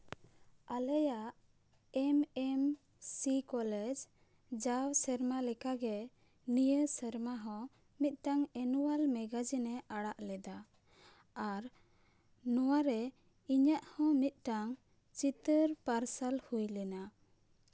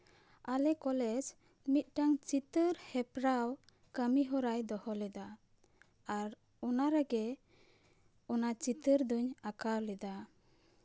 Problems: none marked